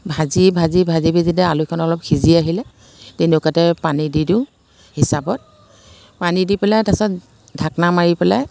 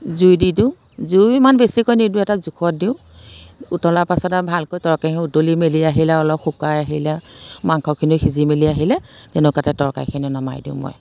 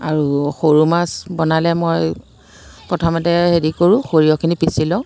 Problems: constant background noise